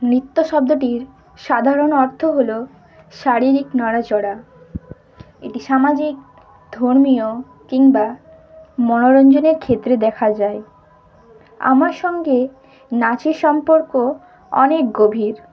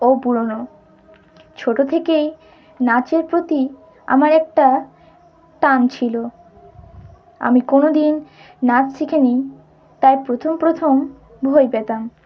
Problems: background sounds at intervals